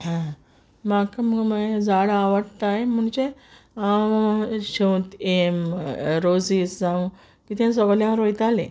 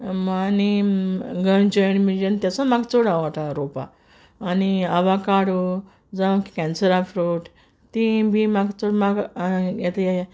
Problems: background sounds at intervals